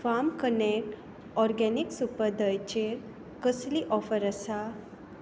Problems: constant background noise